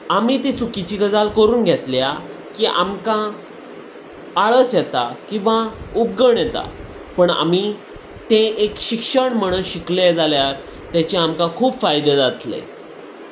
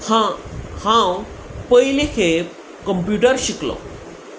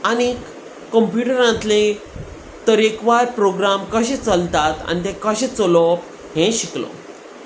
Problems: constant background noise